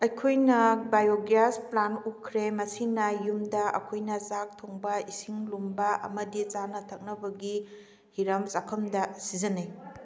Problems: background conversations at intervals